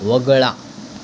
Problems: constant background noise